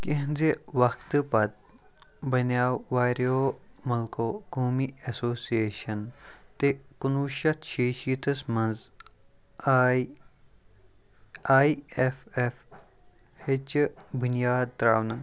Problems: background conversations at intervals, low volume